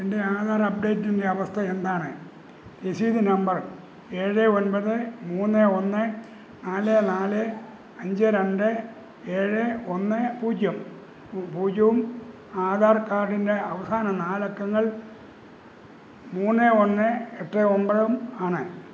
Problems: constant background noise